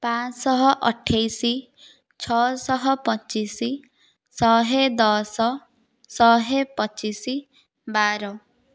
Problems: none marked